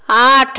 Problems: none marked